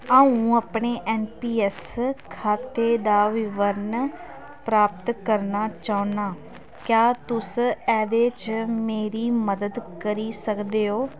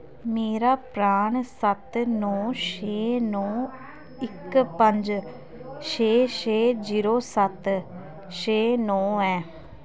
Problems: none marked